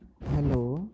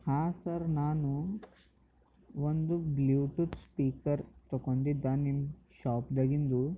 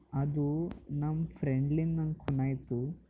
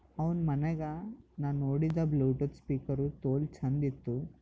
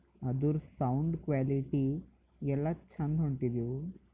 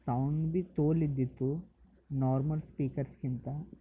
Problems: background sounds at intervals